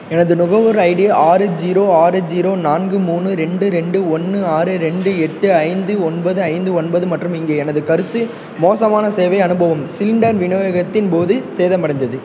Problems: background sounds at intervals